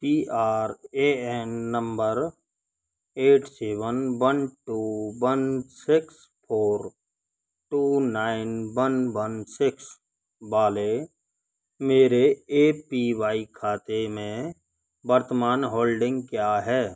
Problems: constant background noise